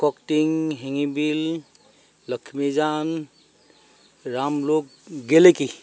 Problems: none marked